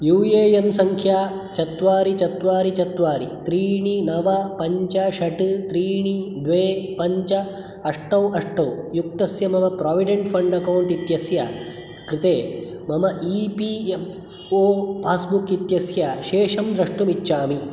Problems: none marked